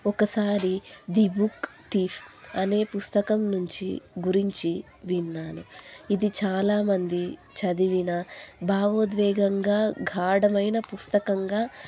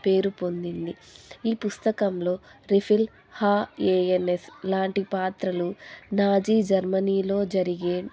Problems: constant background noise